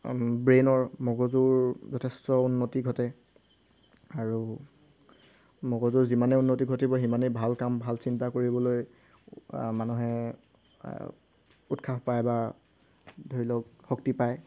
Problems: none marked